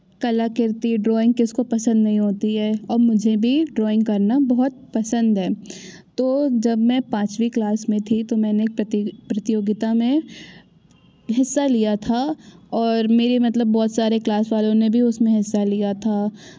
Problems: background sounds at intervals